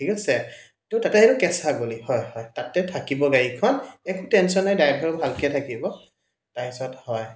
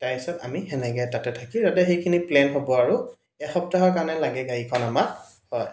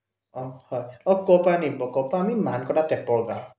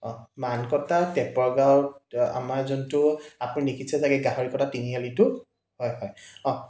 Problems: echo